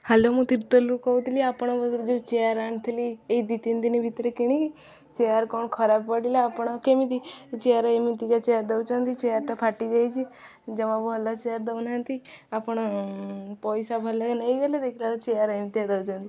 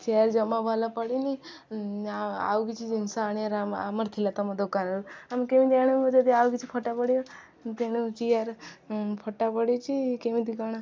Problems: none marked